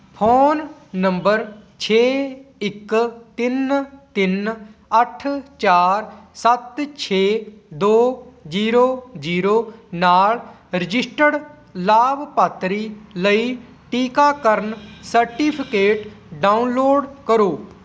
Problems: none marked